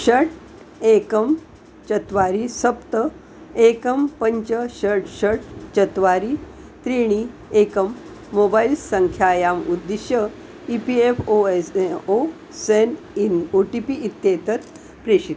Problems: none marked